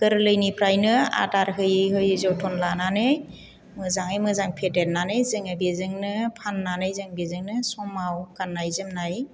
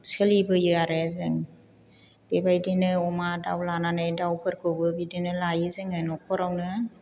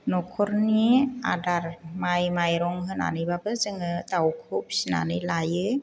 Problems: none marked